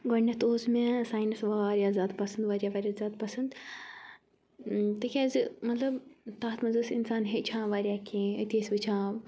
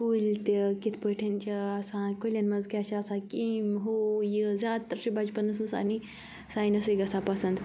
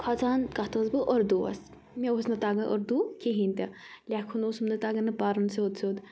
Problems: background sounds at intervals